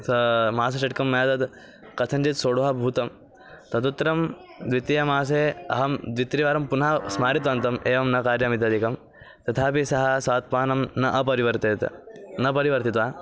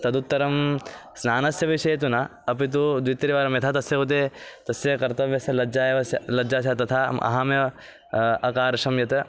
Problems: constant background noise, continuous background conversations